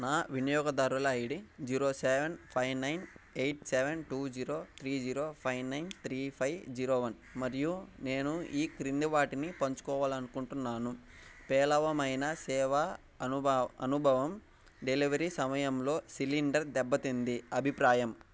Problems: background sounds at intervals